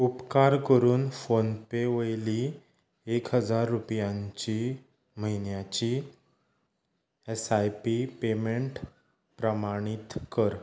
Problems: background sounds at intervals